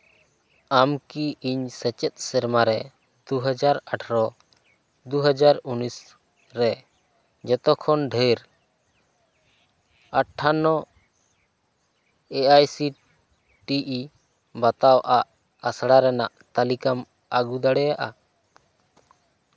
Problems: none marked